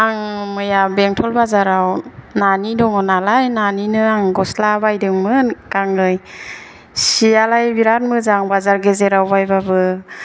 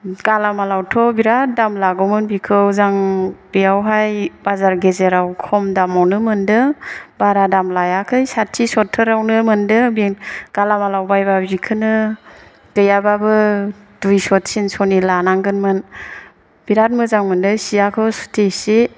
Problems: none marked